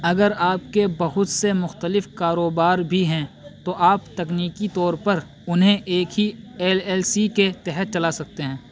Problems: constant background noise